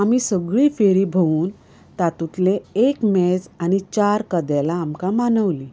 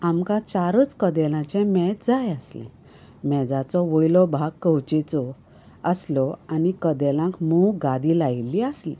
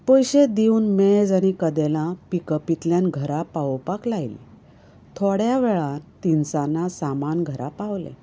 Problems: none marked